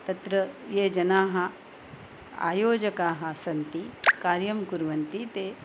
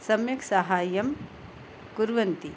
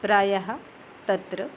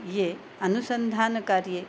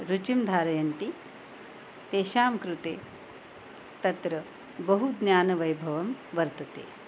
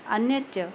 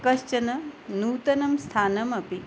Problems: none marked